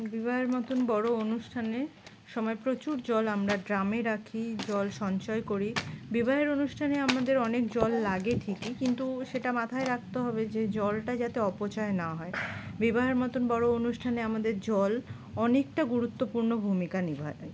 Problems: constant background noise